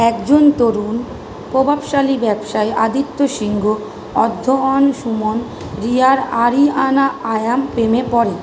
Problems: constant background noise